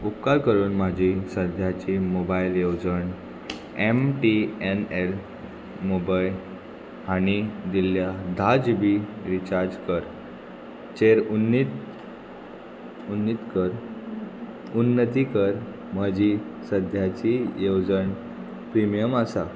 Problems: constant background noise